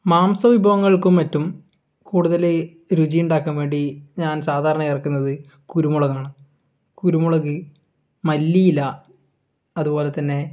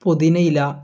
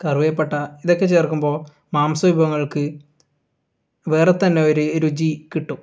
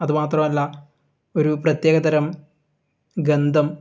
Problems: none marked